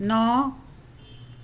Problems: none marked